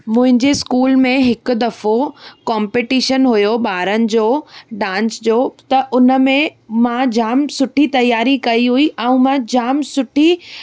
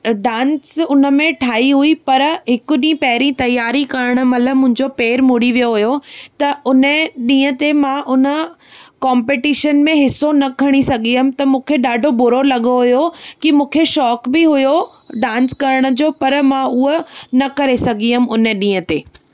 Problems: none marked